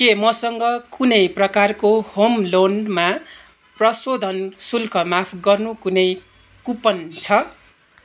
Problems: none marked